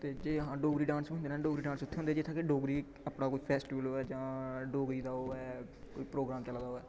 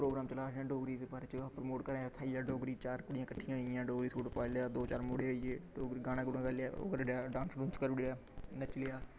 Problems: background sounds at intervals, low volume